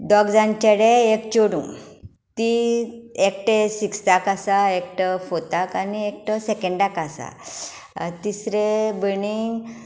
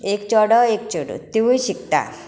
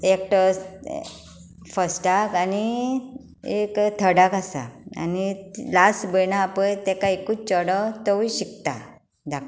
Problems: constant background noise